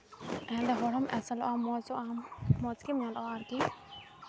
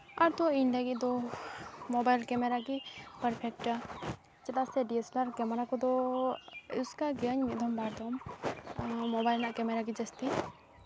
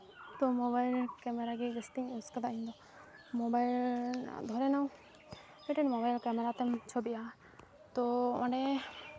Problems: none marked